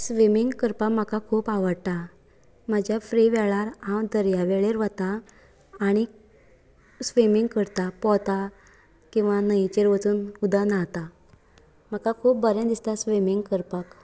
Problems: background sounds at intervals